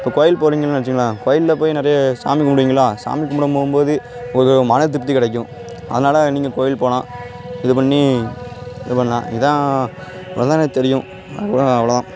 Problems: constant background noise